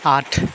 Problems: constant background noise